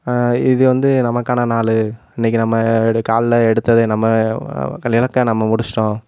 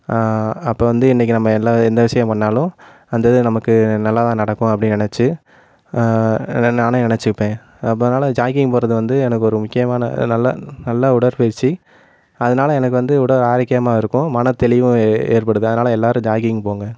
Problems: constant background noise